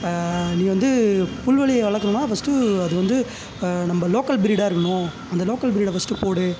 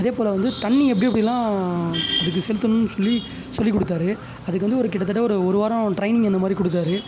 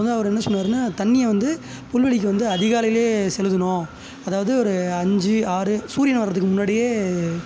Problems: constant background noise